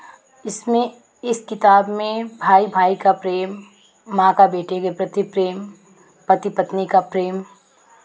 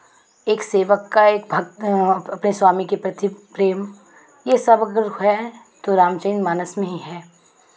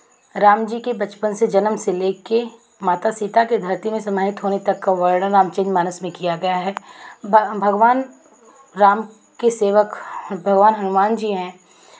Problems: constant background noise